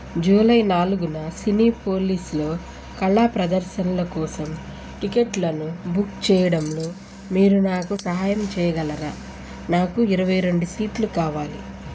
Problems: constant background noise